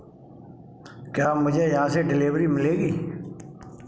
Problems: constant background noise